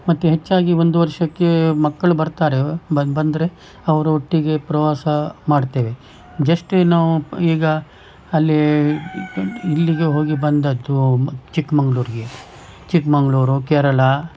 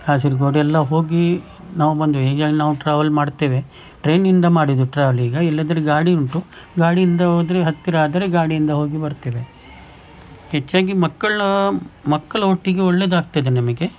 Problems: background sounds at intervals